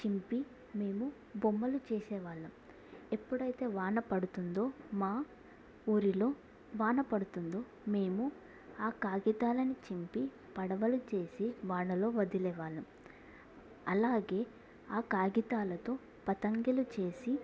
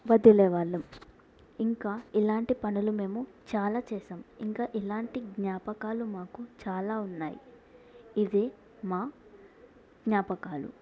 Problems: low volume